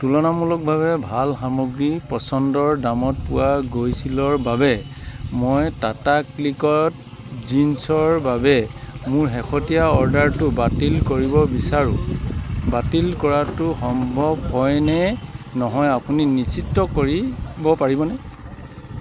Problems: constant background noise